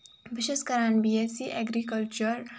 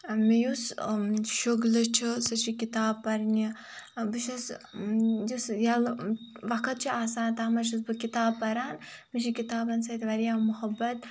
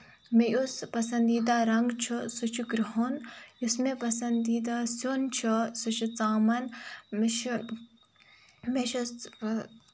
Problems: background sounds at intervals